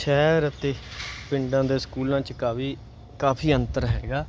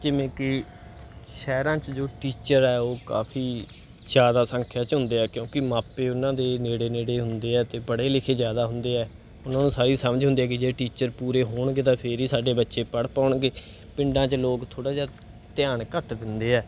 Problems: background sounds at intervals